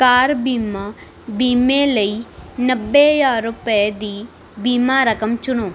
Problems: none marked